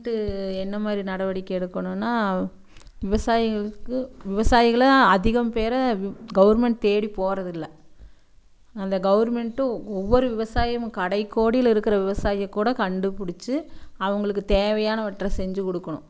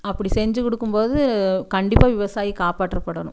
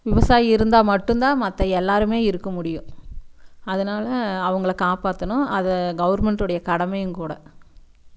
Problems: none marked